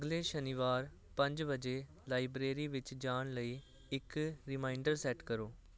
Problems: none marked